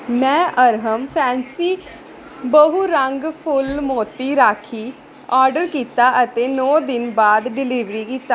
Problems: none marked